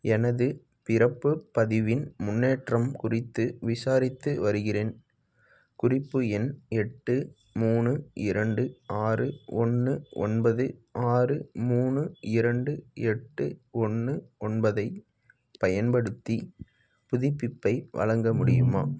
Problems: background sounds at intervals